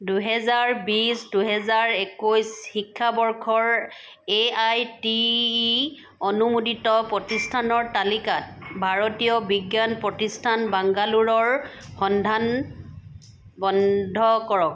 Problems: background sounds at intervals